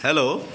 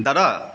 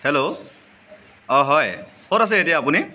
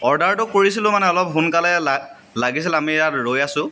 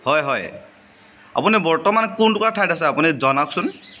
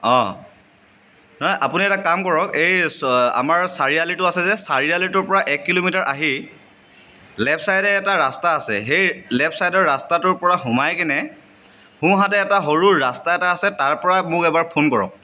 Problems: constant background noise, background conversations at intervals